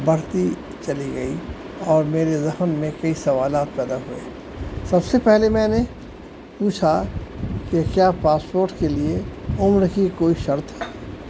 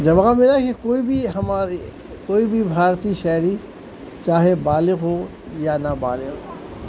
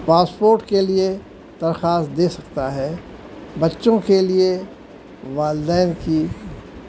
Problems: constant background noise